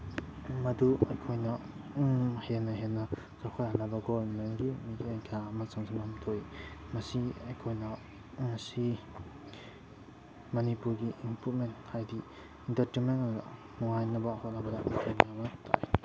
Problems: background sounds at intervals